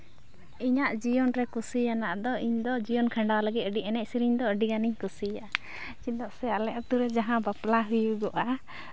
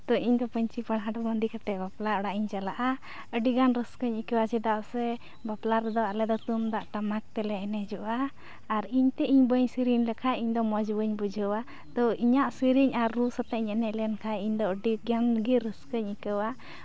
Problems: constant background noise